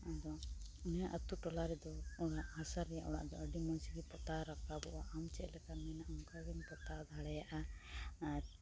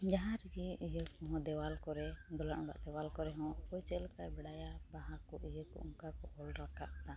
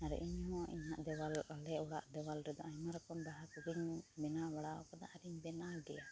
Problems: constant background noise, low volume